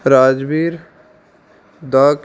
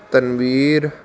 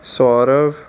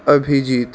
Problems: constant background noise